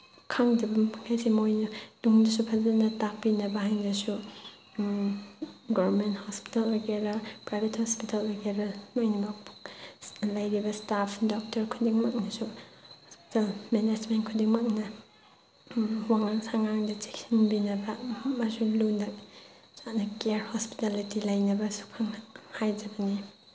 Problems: background sounds at intervals